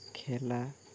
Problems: low volume